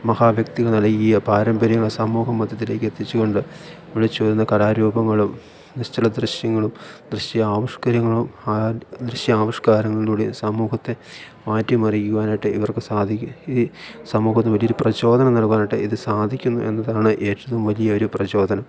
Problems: none marked